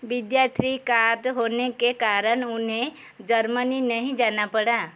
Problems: constant background noise